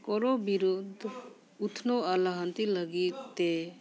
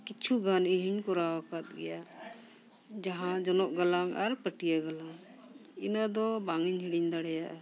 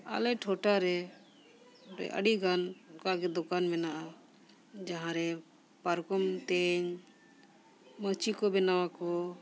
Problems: background sounds at intervals, background conversations at intervals